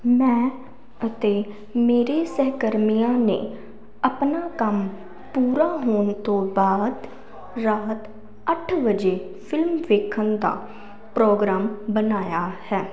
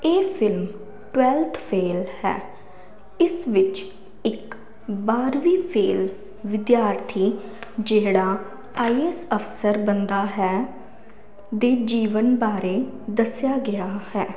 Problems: none marked